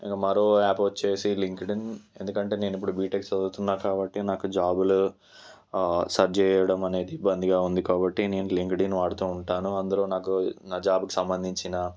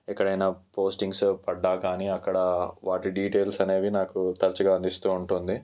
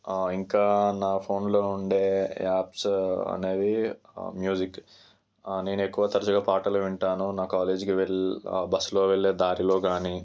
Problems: none marked